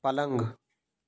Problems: background sounds at intervals